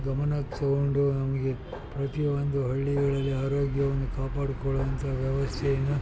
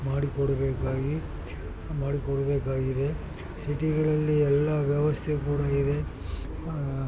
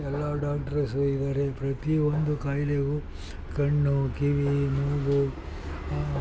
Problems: constant background noise, background conversations at intervals